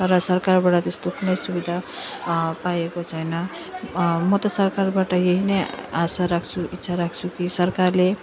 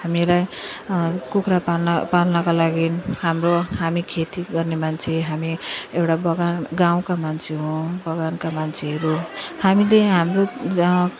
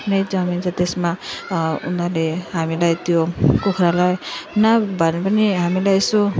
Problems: none marked